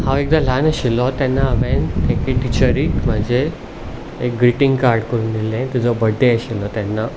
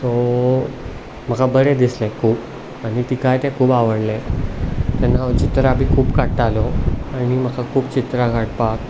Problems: none marked